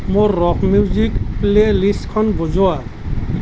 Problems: none marked